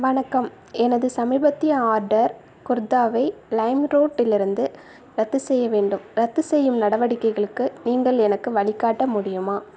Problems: none marked